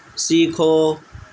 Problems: constant background noise